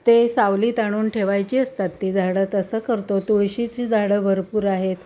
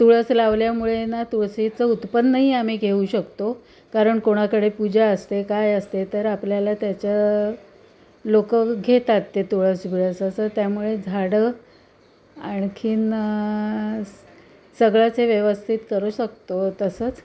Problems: constant background noise, background conversations at intervals